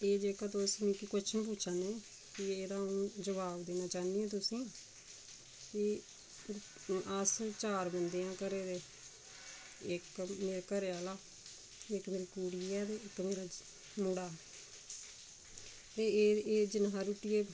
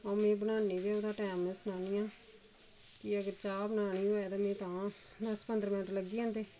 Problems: constant background noise, low volume